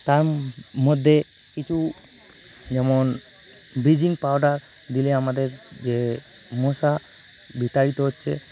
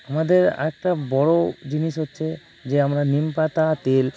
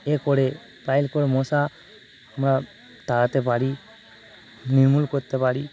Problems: constant background noise